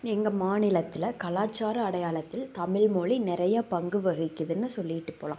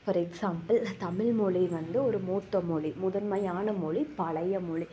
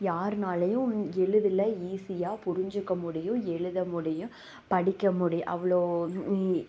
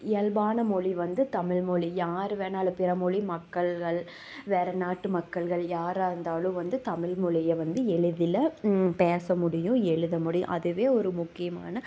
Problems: background sounds at intervals